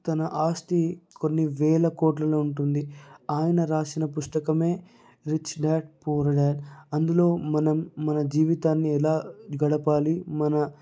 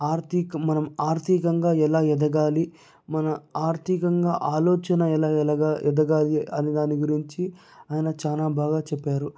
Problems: none marked